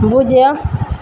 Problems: constant background noise